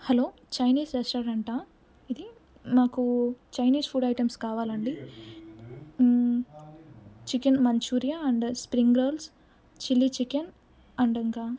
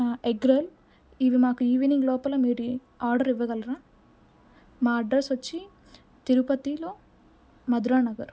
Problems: none marked